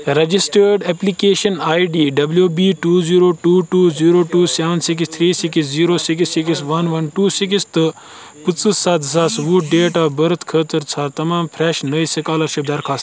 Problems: constant background noise